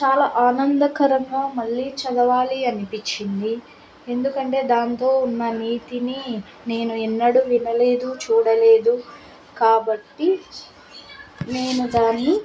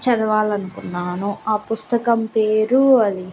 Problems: constant background noise